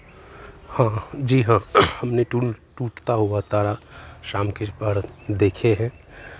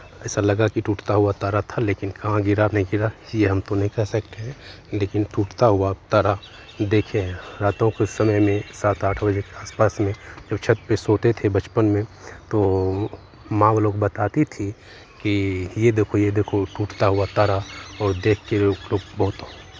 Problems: none marked